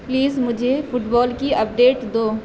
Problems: constant background noise